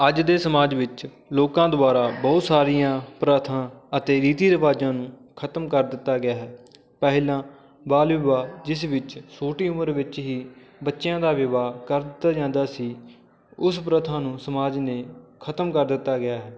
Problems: constant background noise, background conversations at intervals